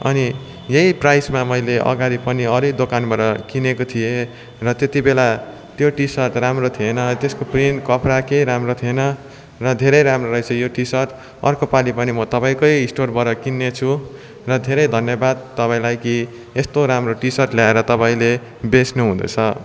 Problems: continuous background conversations